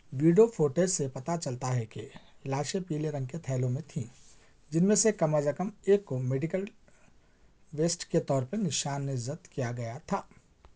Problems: constant background noise